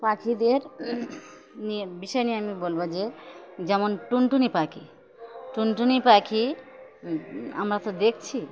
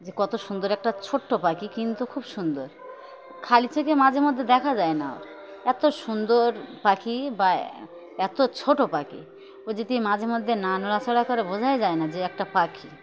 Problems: constant background noise, continuous background conversations